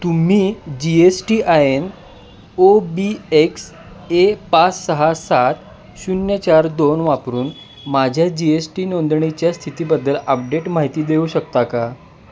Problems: constant background noise